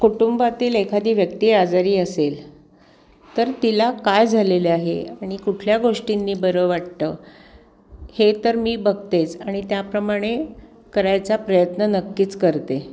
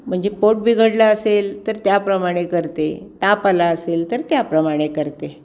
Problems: constant background noise